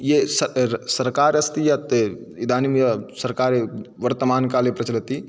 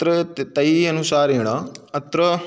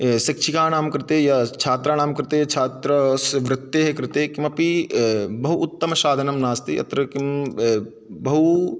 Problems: background sounds at intervals